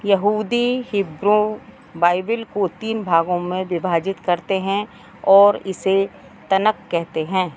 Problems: none marked